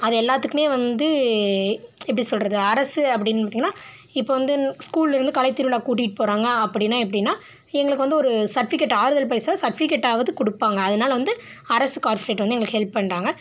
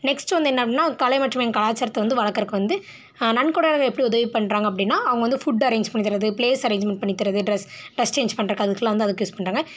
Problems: none marked